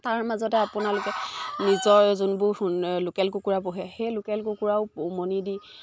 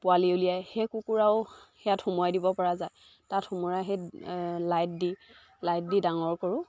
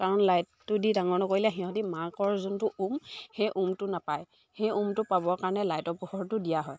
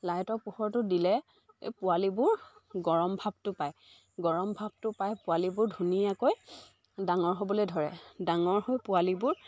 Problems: background sounds at intervals, background conversations at intervals